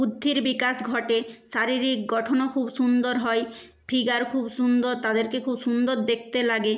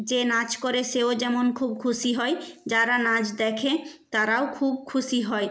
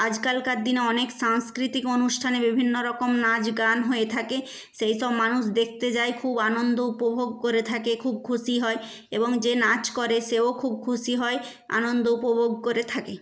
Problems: none marked